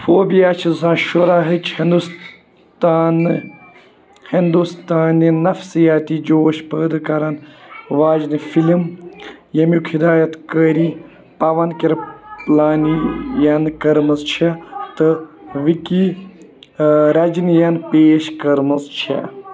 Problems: continuous background conversations